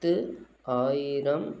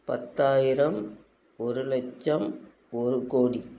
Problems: constant background noise